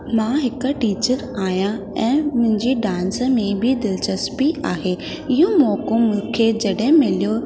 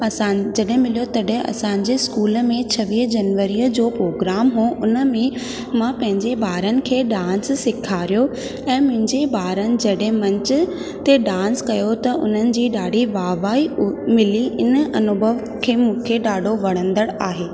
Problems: constant background noise, echo